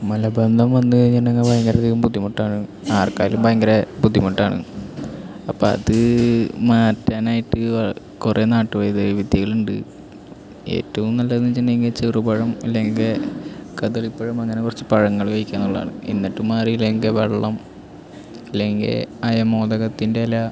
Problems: none marked